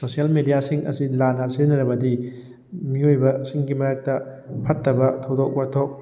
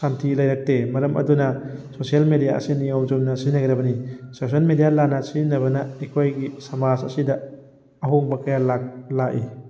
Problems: background sounds at intervals